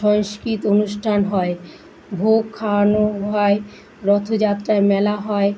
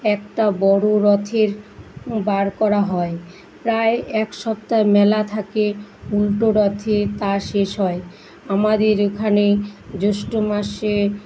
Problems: none marked